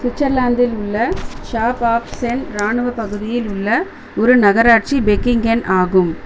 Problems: constant background noise